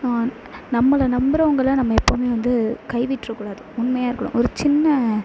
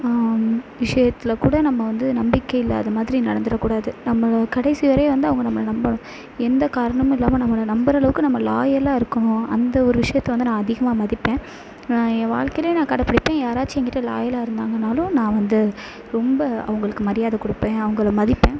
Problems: constant background noise